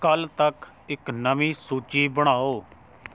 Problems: background sounds at intervals